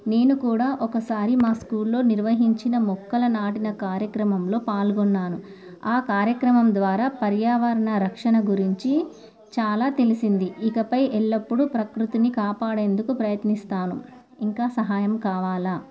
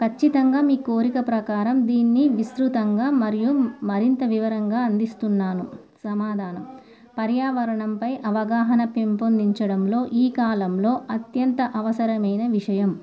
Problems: none marked